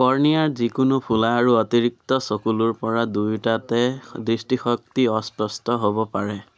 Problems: background conversations at intervals